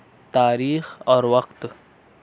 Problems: constant background noise